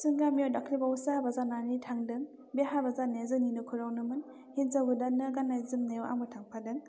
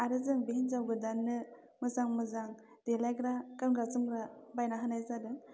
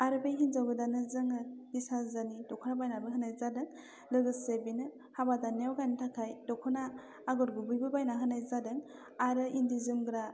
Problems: constant background noise